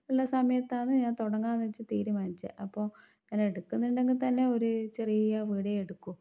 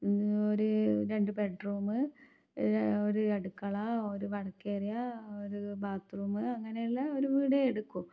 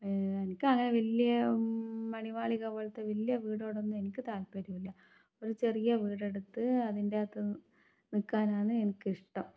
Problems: none marked